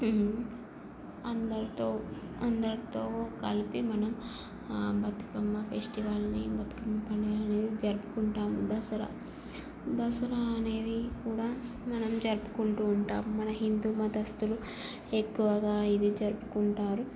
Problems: constant background noise, low volume